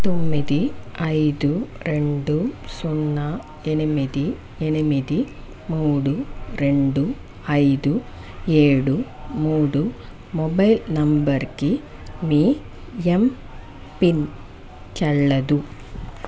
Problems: none marked